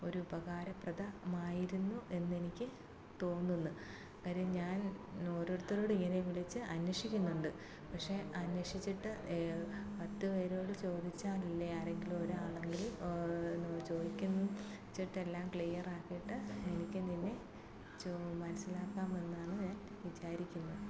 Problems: low volume